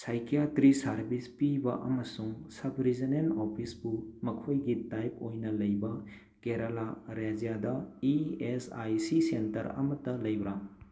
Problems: none marked